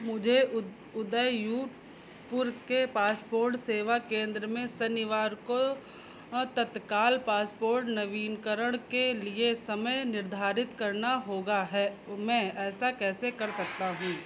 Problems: constant background noise